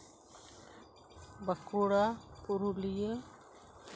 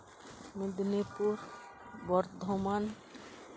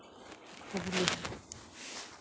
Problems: background sounds at intervals, background conversations at intervals